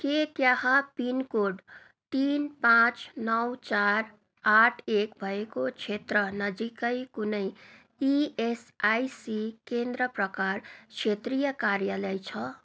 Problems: none marked